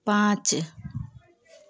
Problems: background sounds at intervals